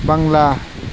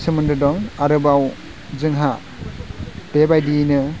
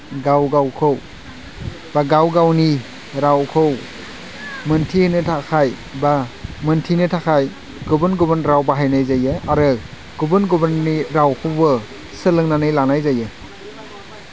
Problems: constant background noise